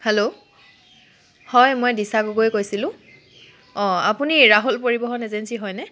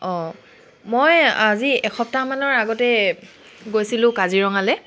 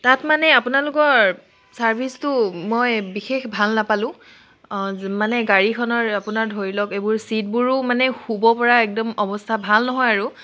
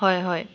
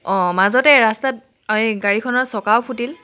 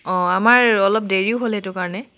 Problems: constant background noise